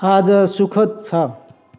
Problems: echo